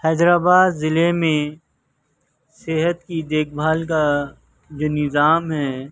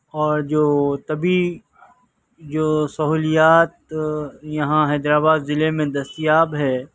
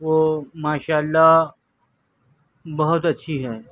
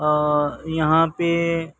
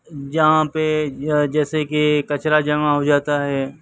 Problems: background sounds at intervals, background conversations at intervals